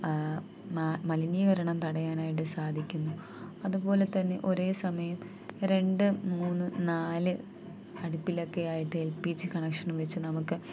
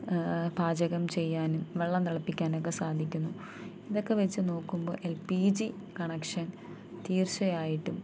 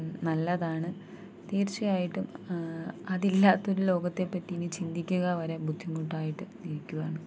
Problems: constant background noise, low volume